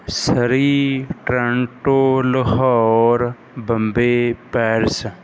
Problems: background sounds at intervals